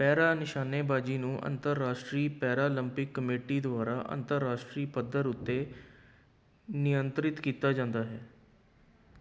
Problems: none marked